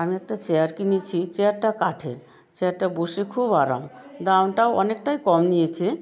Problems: background conversations at intervals